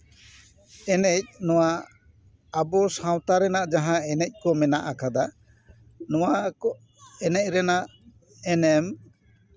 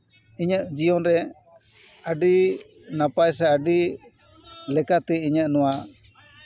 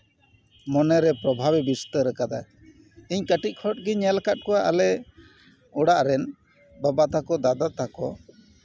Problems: background sounds at intervals, background conversations at intervals